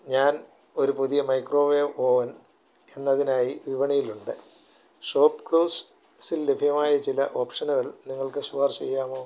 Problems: low volume